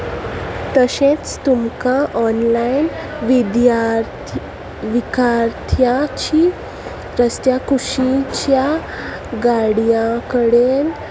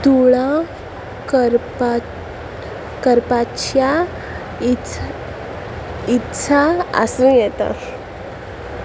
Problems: constant background noise